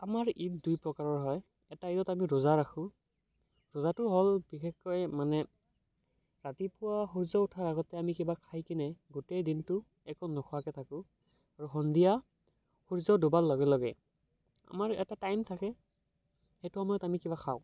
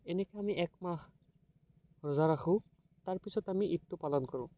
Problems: background sounds at intervals